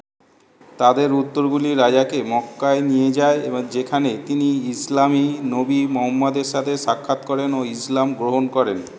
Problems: none marked